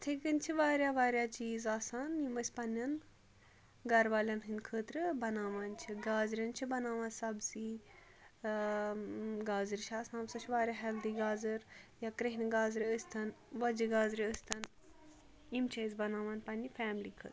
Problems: none marked